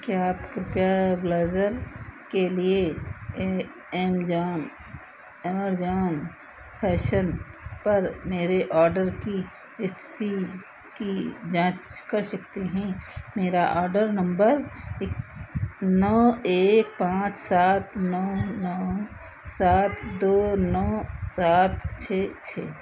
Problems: none marked